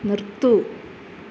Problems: none marked